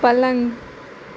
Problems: constant background noise